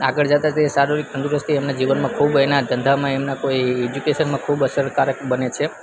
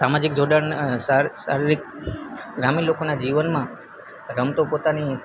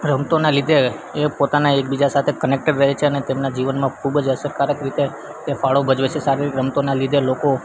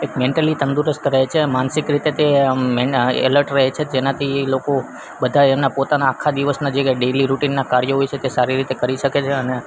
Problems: constant background noise